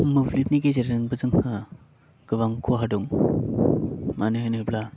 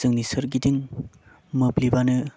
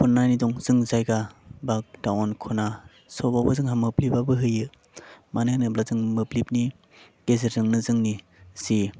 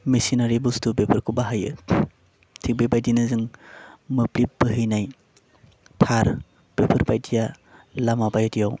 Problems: constant background noise